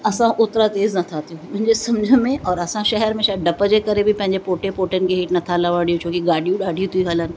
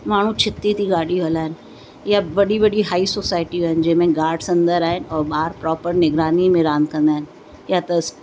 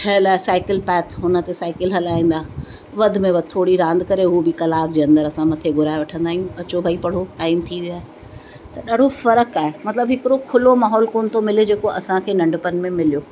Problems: constant background noise